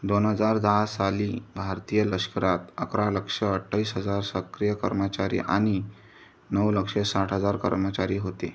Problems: constant background noise